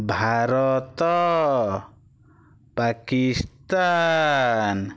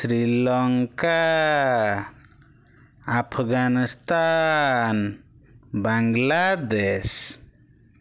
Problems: none marked